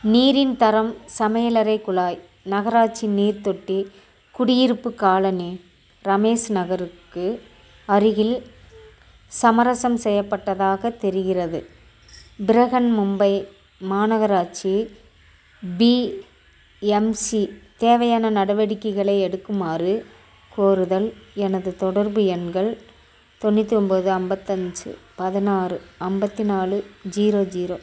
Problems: none marked